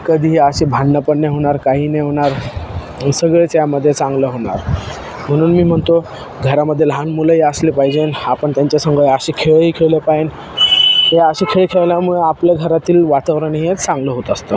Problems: constant background noise